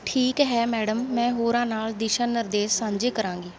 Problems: none marked